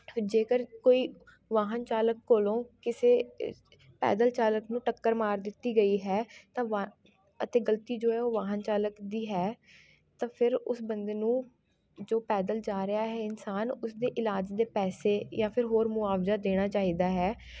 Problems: background sounds at intervals, continuous background conversations